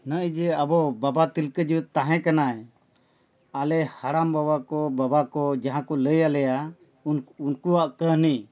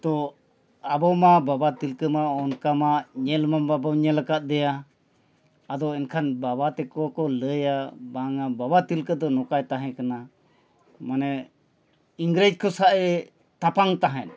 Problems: none marked